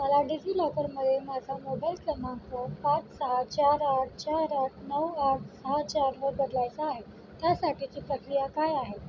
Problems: constant background noise